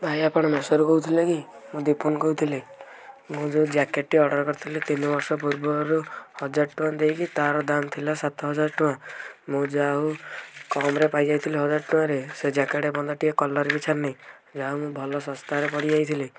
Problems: background sounds at intervals